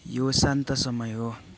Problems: background conversations at intervals